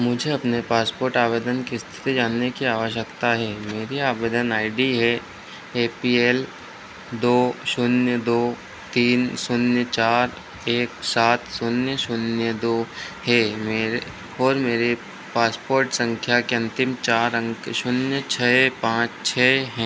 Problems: none marked